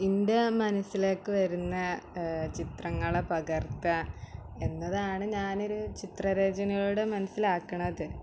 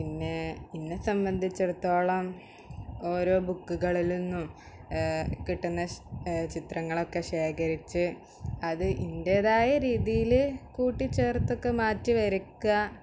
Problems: background sounds at intervals